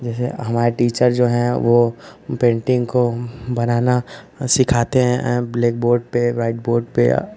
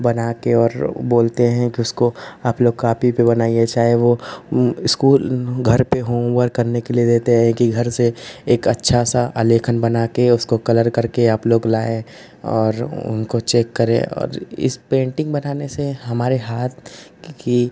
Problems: constant background noise